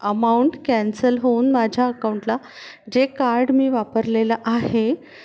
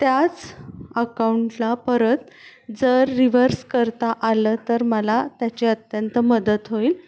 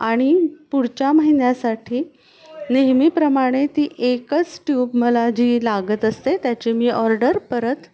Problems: background sounds at intervals